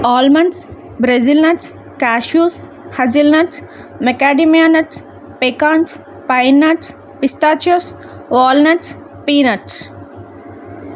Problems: none marked